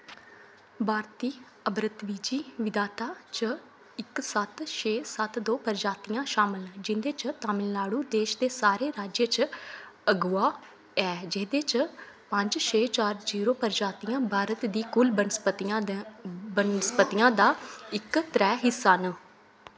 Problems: constant background noise